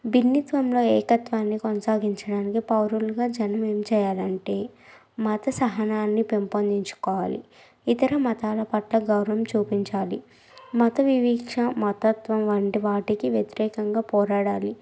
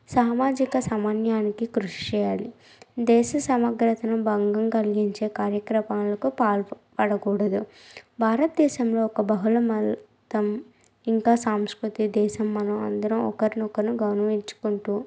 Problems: none marked